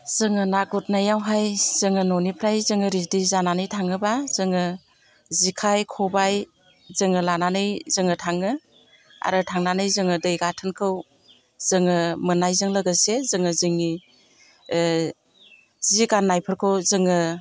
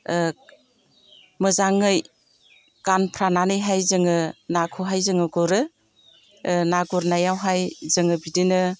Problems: constant background noise